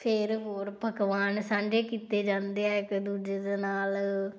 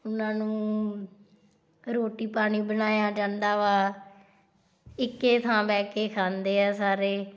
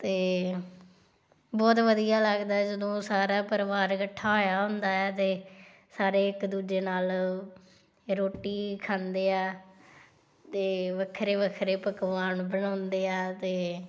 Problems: background sounds at intervals